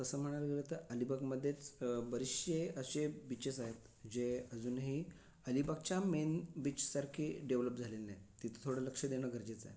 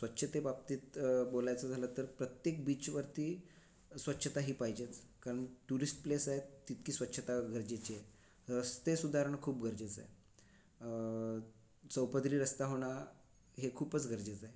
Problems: none marked